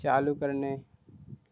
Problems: constant background noise